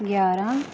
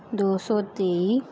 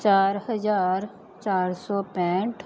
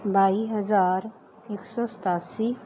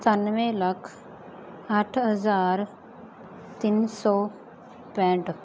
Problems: background sounds at intervals